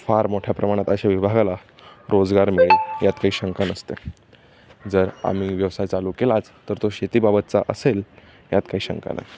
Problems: none marked